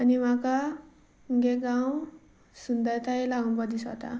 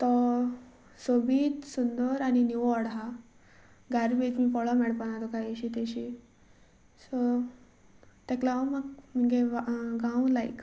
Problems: constant background noise